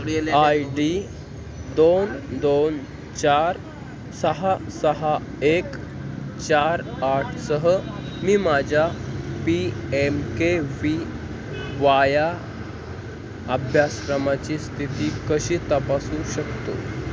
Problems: constant background noise